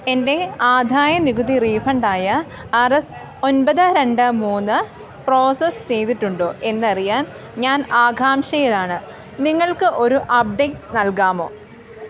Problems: constant background noise